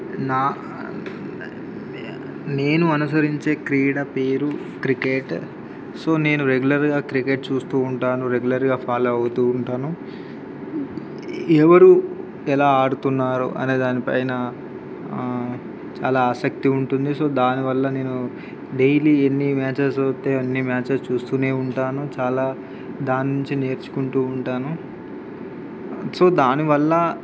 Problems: constant background noise